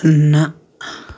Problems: background sounds at intervals